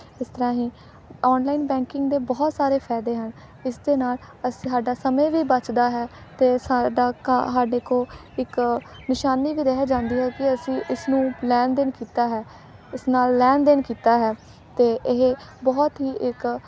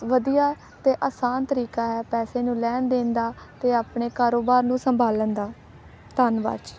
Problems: background sounds at intervals, background conversations at intervals